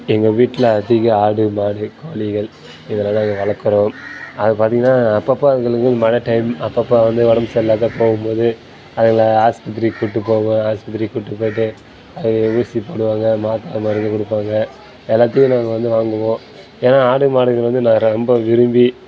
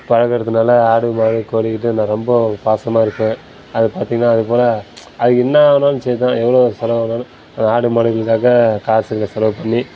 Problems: background sounds at intervals